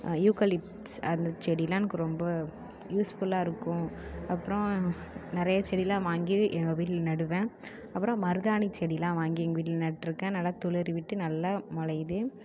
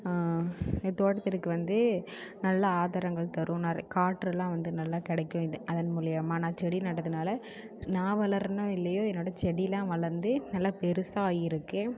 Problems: continuous background conversations